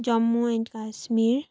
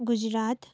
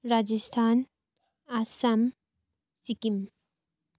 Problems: none marked